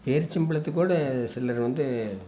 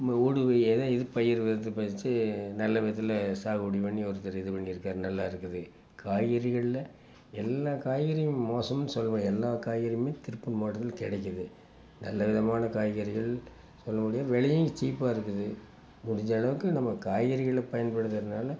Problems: constant background noise